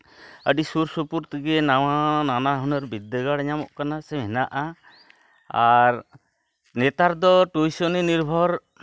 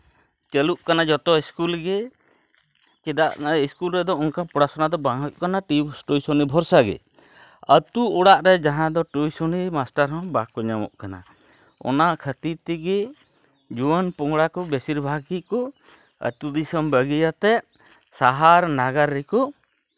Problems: none marked